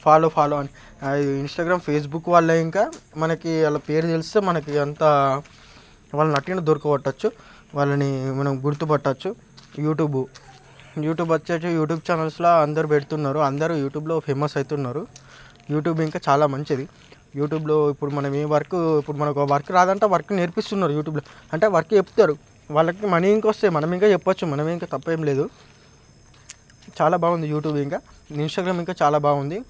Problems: background sounds at intervals, background conversations at intervals